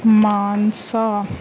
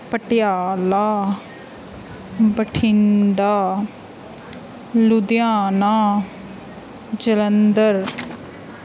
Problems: none marked